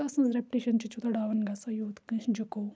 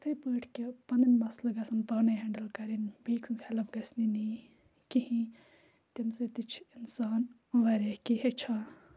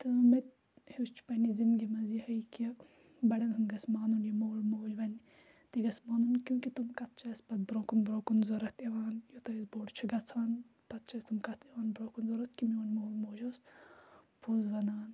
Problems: background sounds at intervals